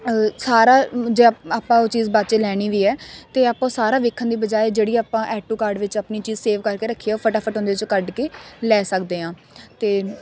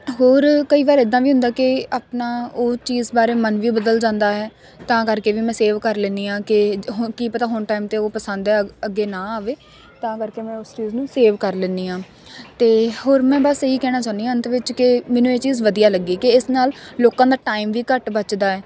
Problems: constant background noise